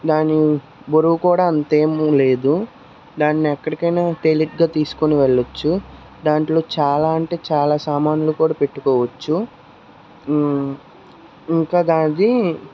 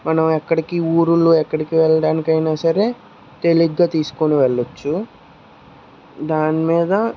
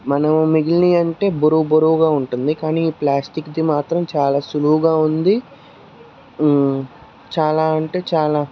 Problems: constant background noise, background conversations at intervals